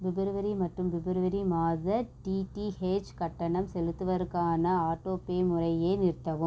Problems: none marked